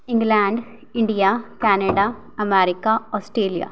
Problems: none marked